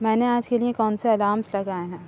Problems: none marked